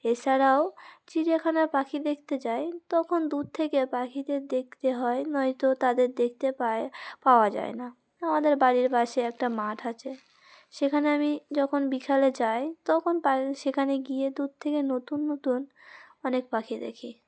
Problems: none marked